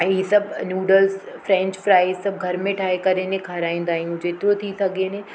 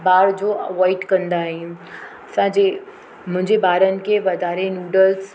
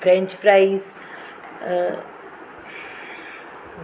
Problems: constant background noise